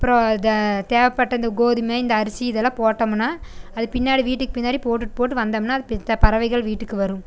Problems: none marked